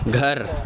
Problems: constant background noise